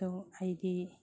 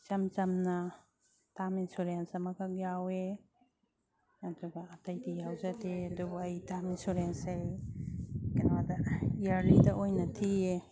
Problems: background sounds at intervals